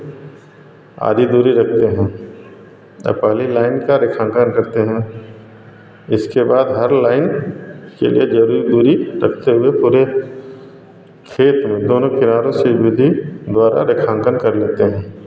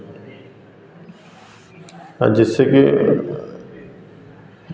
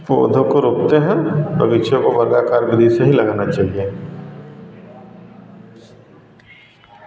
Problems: none marked